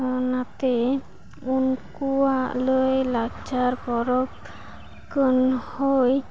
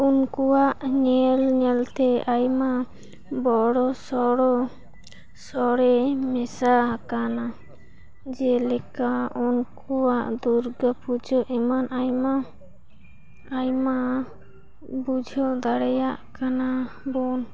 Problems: background sounds at intervals, background conversations at intervals